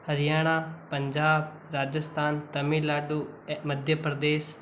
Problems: constant background noise